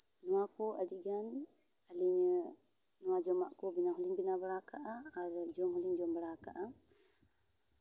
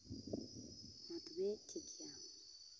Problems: background sounds at intervals